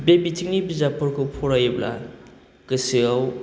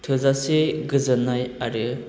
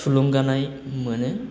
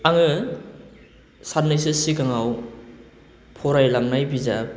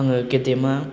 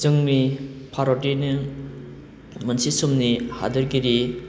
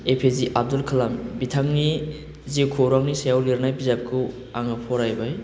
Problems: none marked